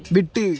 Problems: background conversations at intervals